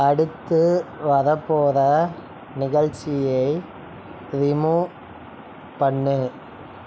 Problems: constant background noise